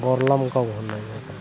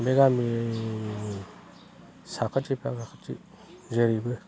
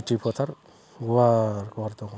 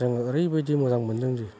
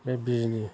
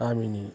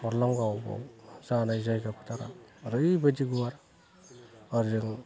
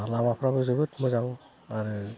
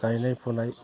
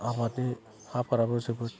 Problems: low volume